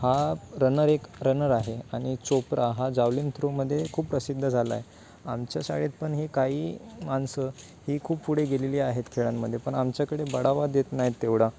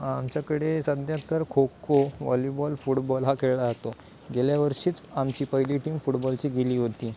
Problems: constant background noise